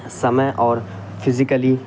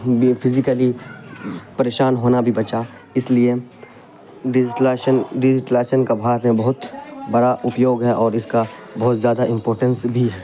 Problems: constant background noise